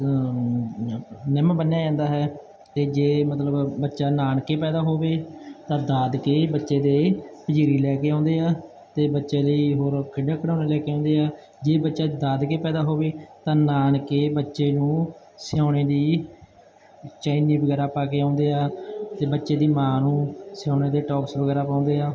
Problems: none marked